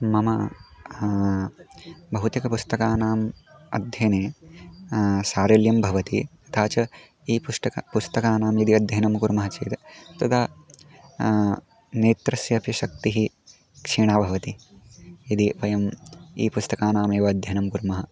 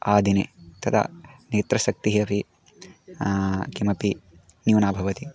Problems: background sounds at intervals